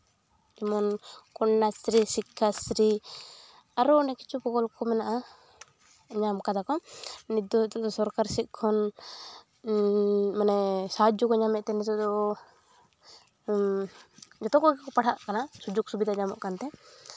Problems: none marked